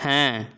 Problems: none marked